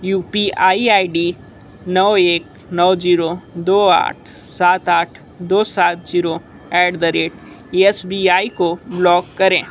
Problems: constant background noise